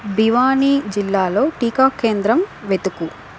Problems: constant background noise